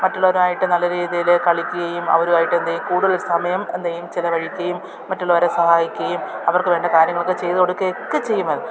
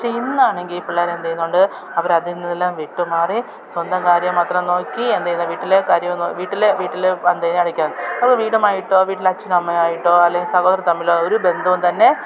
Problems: continuous background conversations